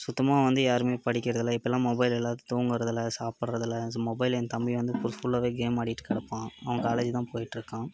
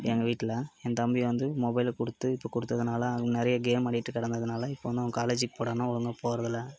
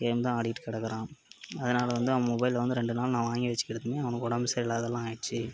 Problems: background sounds at intervals, background conversations at intervals